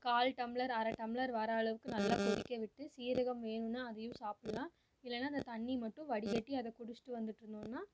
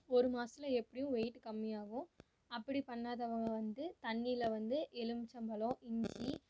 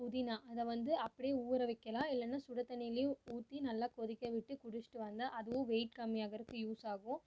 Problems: none marked